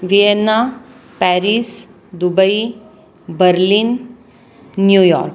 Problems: constant background noise